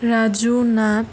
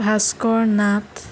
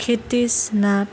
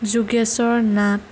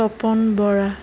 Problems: constant background noise